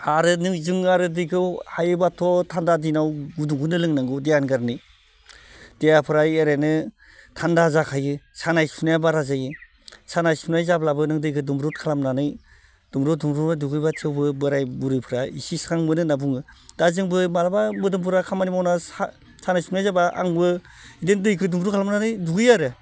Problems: constant background noise